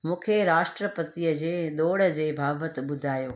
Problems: constant background noise